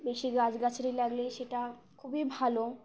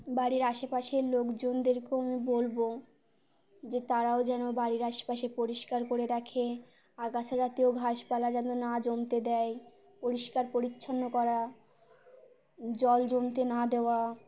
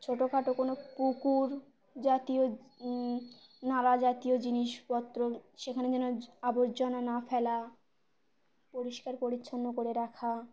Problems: constant background noise